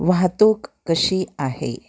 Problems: background sounds at intervals